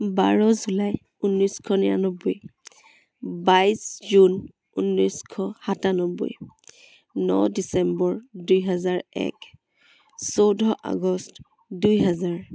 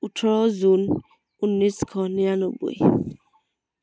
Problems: constant background noise